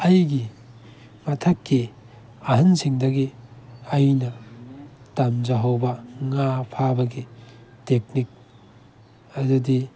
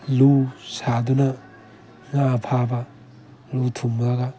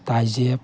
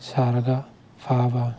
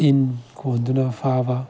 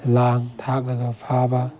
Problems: background sounds at intervals